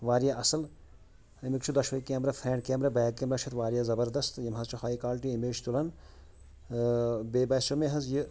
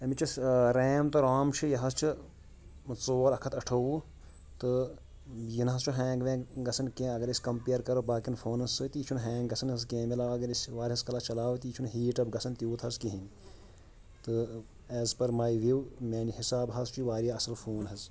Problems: none marked